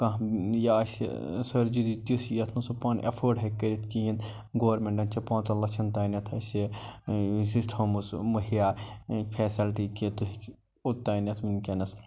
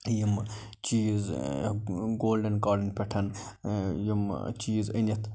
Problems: none marked